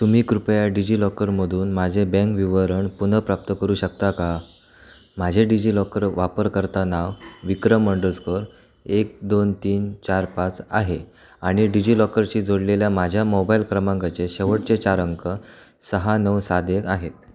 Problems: constant background noise